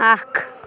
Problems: constant background noise